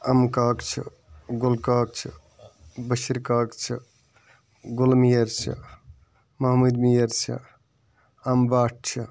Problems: constant background noise